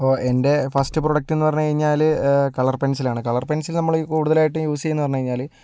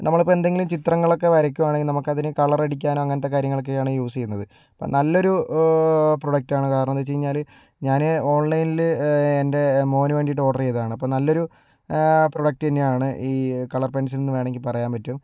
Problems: none marked